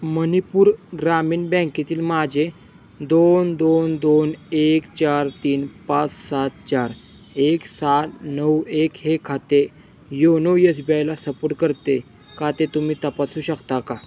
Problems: constant background noise